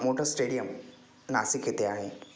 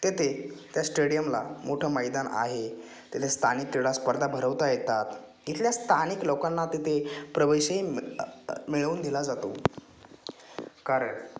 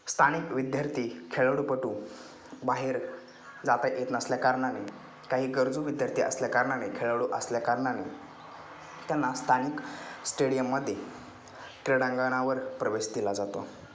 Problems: constant background noise